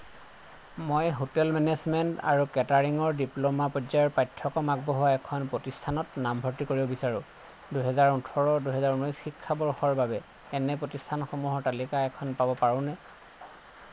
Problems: constant background noise